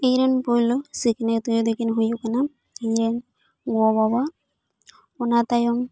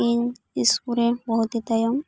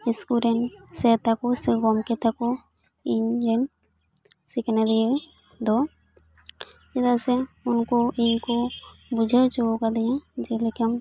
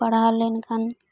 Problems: background sounds at intervals